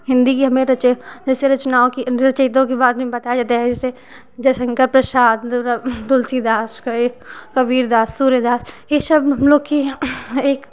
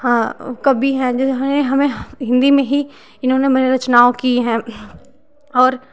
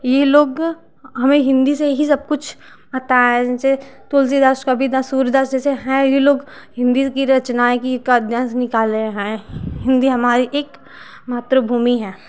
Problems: constant background noise